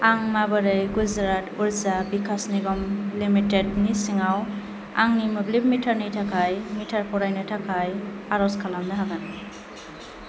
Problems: constant background noise